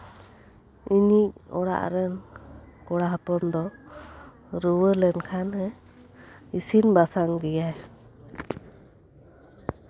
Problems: background sounds at intervals, background conversations at intervals